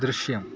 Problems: background sounds at intervals